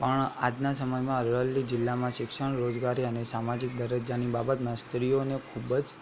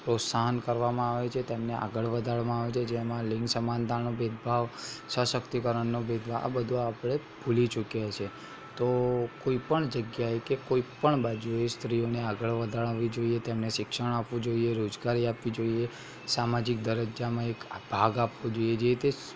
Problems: constant background noise